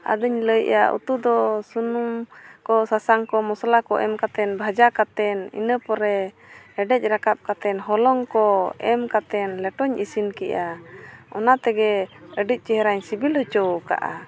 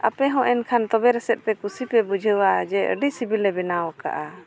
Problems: background sounds at intervals, background conversations at intervals